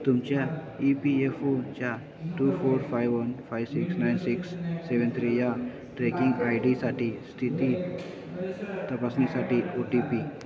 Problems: continuous background conversations